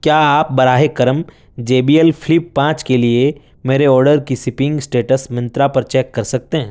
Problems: none marked